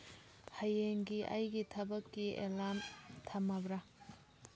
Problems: low volume